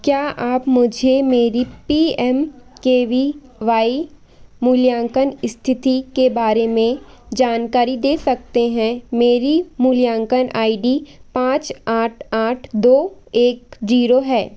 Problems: none marked